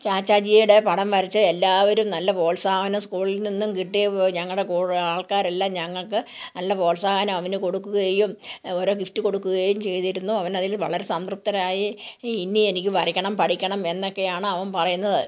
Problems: background conversations at intervals